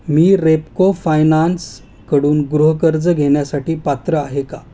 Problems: constant background noise